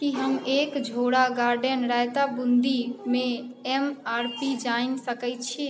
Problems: none marked